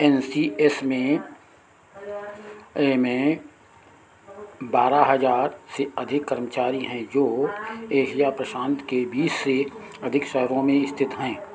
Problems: constant background noise